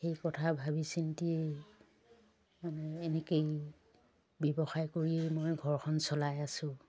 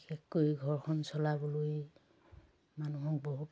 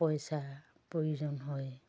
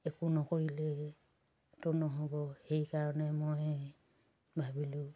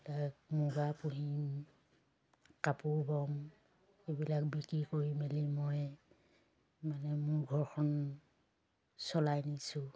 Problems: none marked